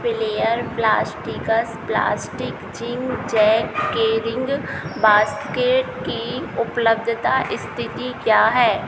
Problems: none marked